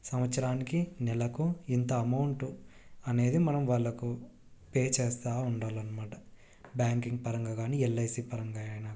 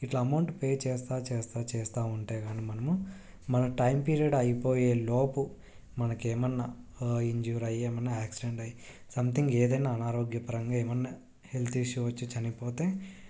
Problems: none marked